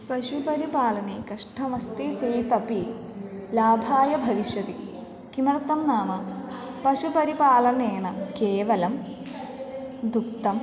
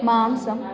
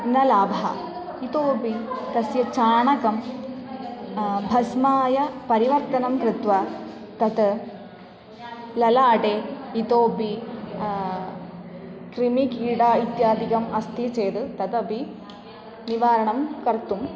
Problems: constant background noise, continuous background conversations